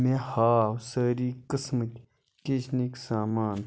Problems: constant background noise